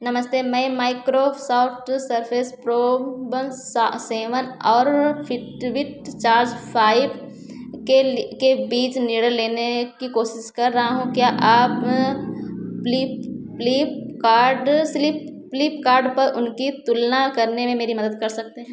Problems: none marked